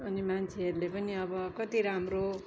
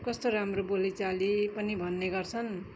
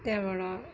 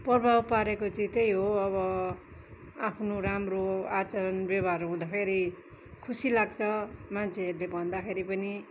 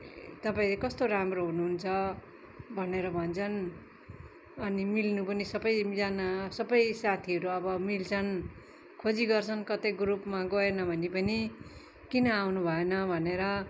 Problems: background sounds at intervals